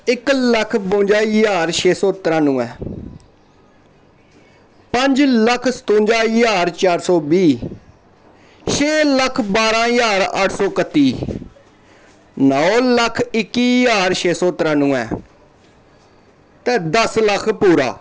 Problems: background sounds at intervals